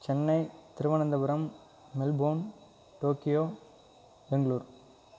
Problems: constant background noise